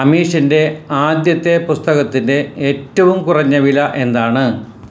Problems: constant background noise